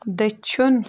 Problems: none marked